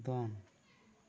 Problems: low volume